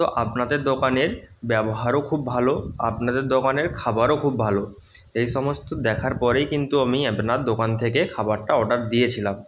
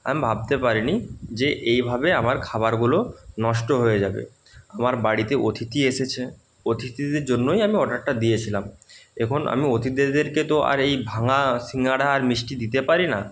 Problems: none marked